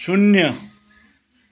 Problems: none marked